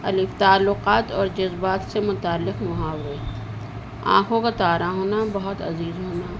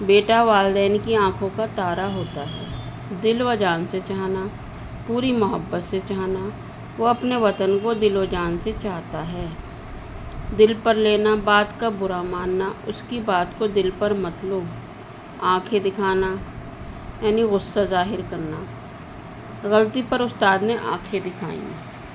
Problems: constant background noise, low volume